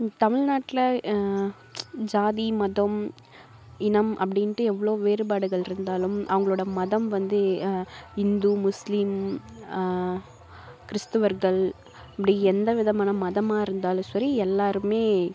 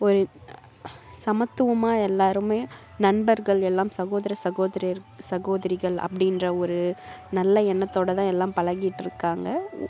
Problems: background sounds at intervals